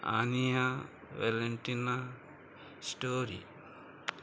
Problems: none marked